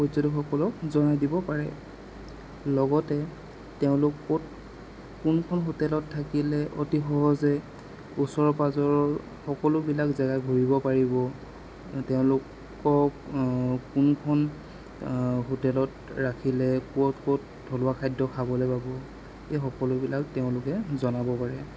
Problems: constant background noise